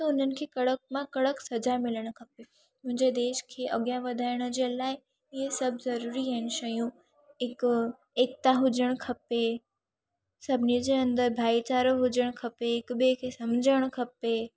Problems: none marked